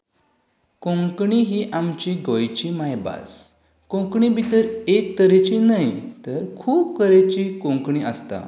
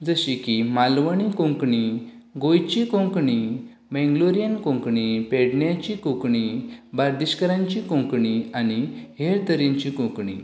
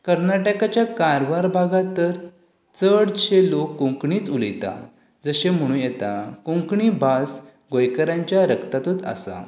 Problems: none marked